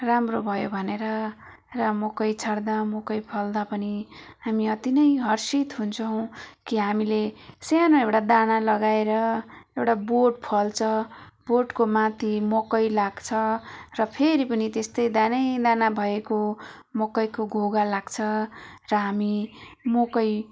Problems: background sounds at intervals